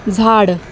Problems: none marked